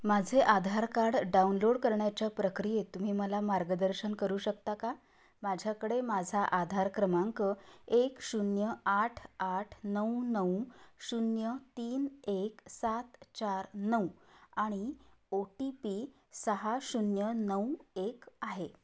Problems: none marked